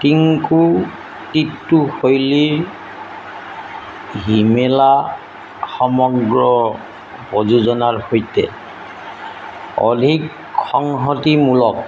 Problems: constant background noise